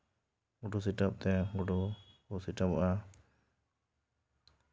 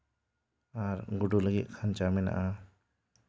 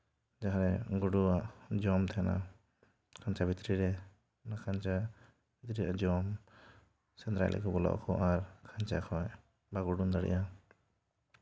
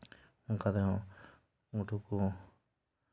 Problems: none marked